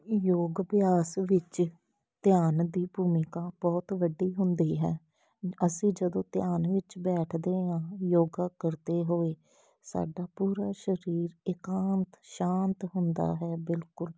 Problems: background sounds at intervals